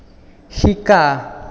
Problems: echo